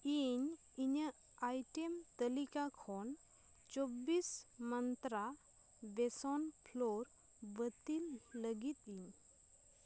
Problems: none marked